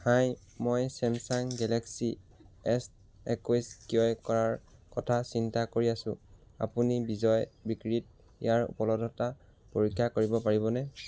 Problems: background sounds at intervals